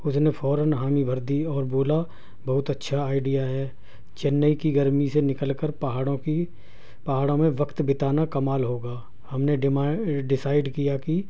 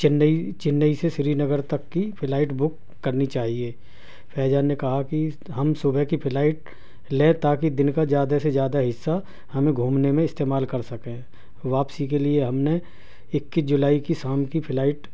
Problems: none marked